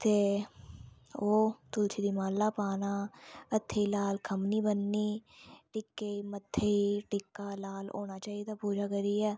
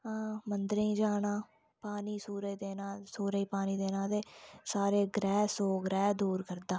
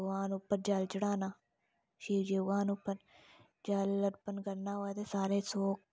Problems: low volume